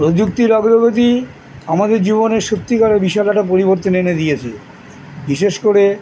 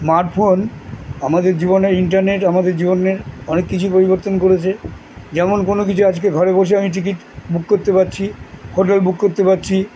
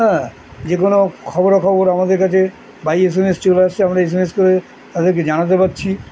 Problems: constant background noise